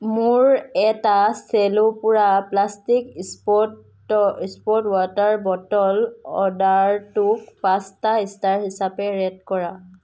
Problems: none marked